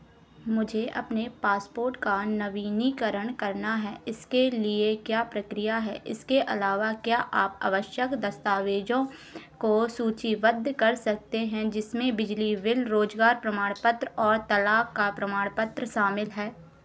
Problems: constant background noise